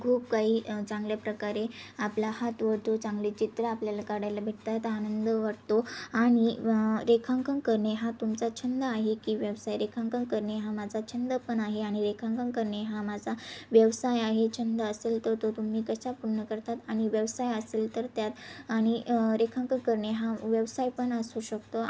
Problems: background sounds at intervals, background conversations at intervals